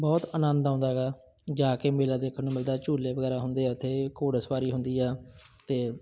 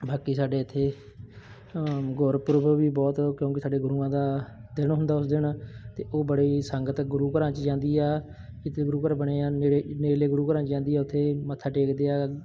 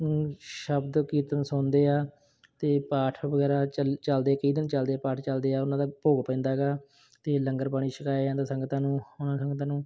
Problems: none marked